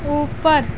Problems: none marked